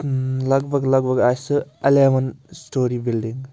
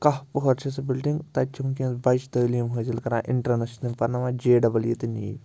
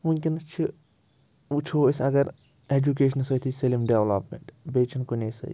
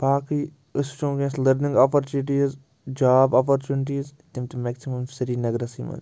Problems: constant background noise